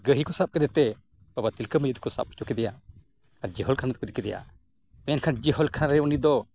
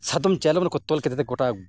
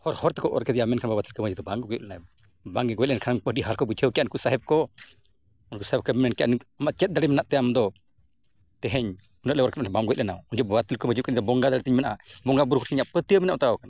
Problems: none marked